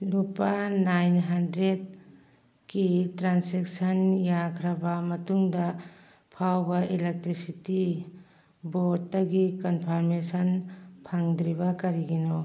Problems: background conversations at intervals